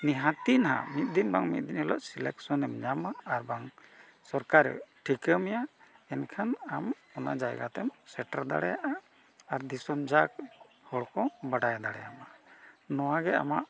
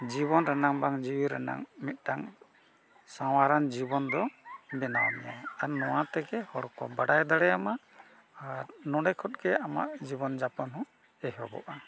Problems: none marked